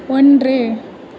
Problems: constant background noise